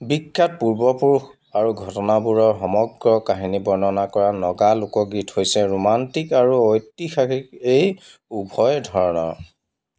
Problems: none marked